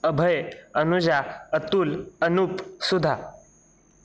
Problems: constant background noise